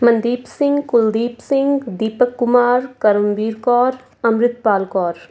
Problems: none marked